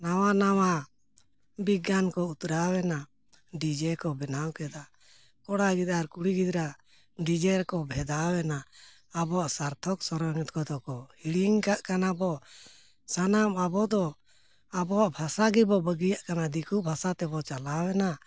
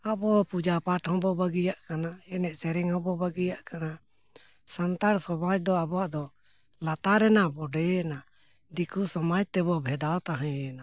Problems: none marked